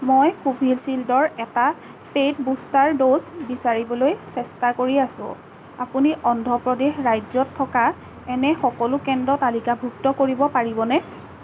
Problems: constant background noise